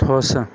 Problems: background sounds at intervals